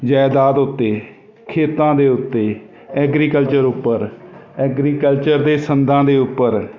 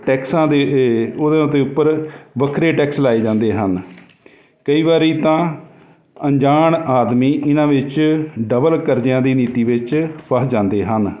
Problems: constant background noise